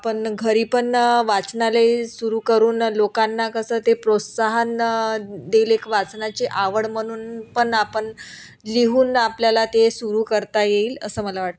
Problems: none marked